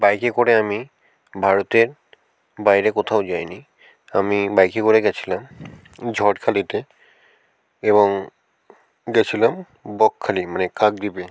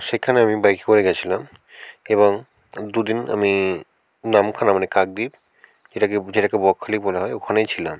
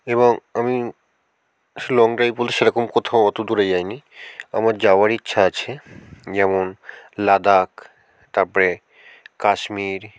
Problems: constant background noise